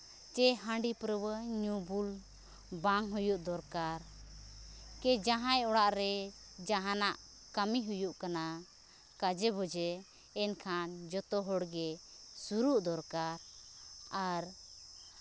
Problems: constant background noise